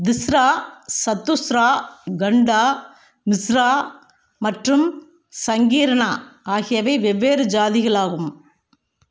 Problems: none marked